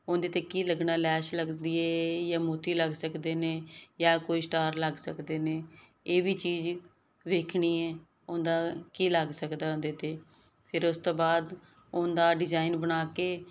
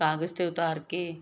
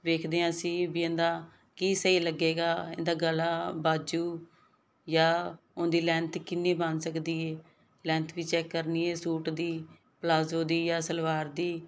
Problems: background sounds at intervals